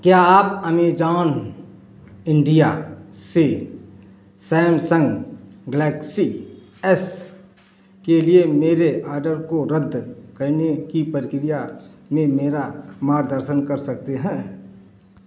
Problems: none marked